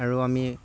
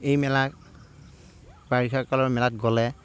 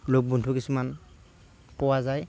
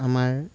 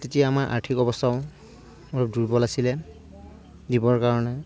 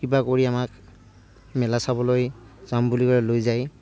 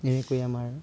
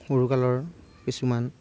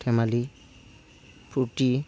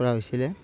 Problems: background sounds at intervals, low volume